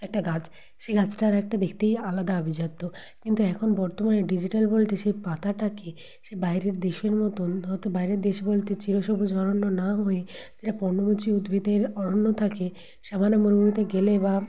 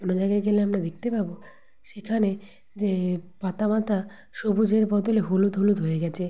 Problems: none marked